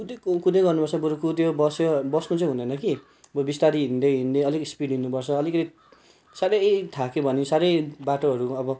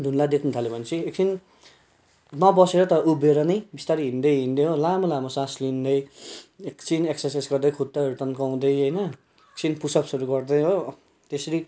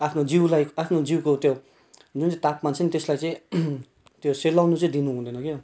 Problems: background sounds at intervals